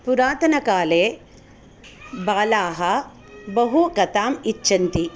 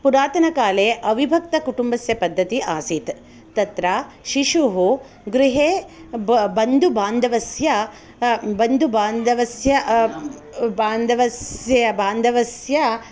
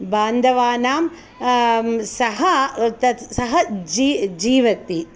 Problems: none marked